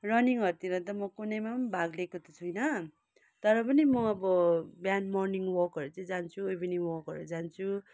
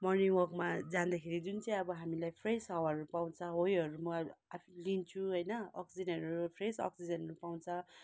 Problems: none marked